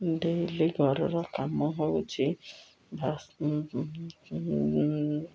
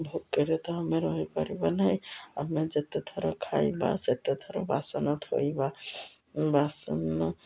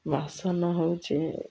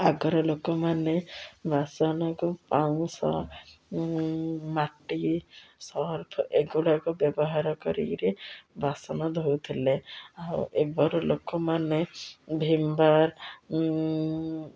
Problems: none marked